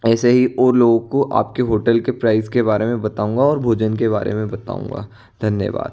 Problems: background sounds at intervals